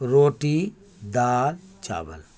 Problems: none marked